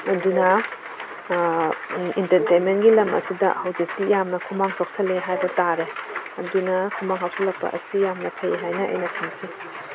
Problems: background sounds at intervals